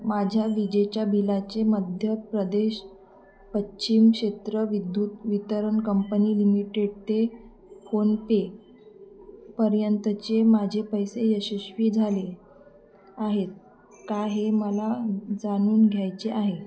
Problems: constant background noise, background conversations at intervals